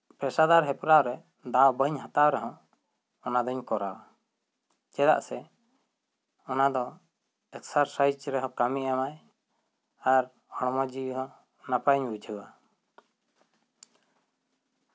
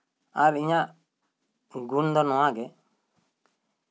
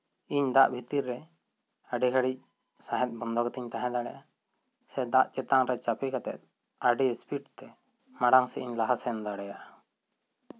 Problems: none marked